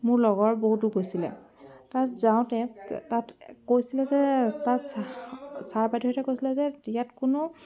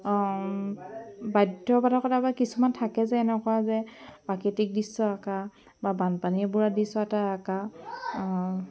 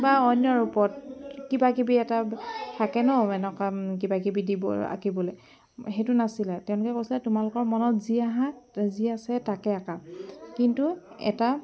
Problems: background sounds at intervals, continuous background conversations